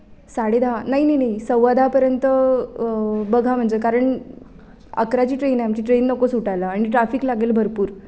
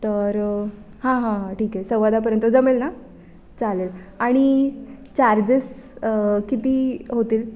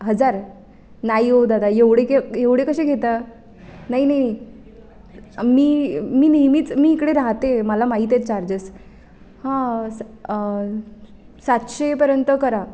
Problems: none marked